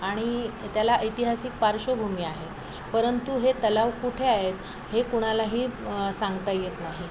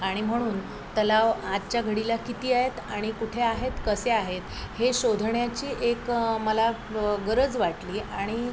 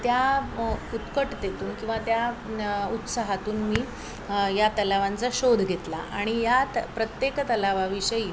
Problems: constant background noise, continuous background conversations